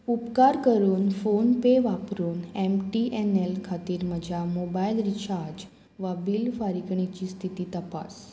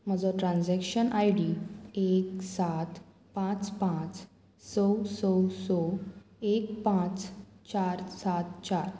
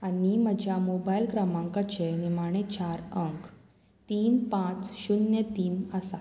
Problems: constant background noise